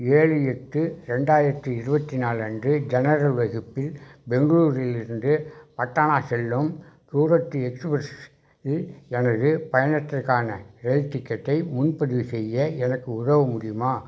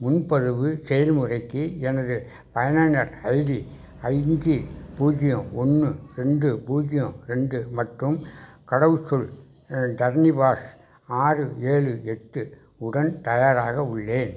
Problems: background sounds at intervals, background conversations at intervals